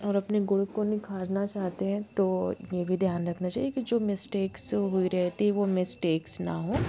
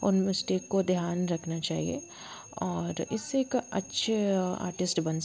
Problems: constant background noise